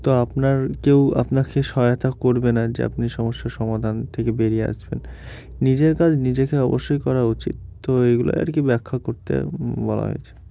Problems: background sounds at intervals